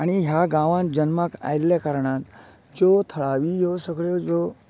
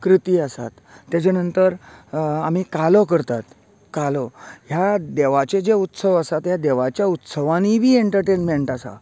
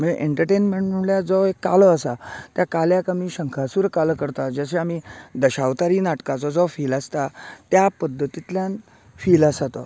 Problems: none marked